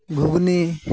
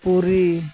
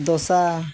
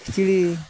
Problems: none marked